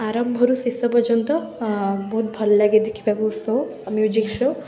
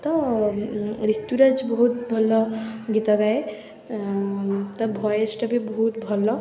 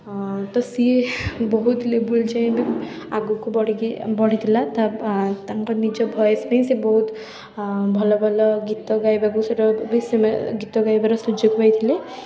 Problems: continuous background conversations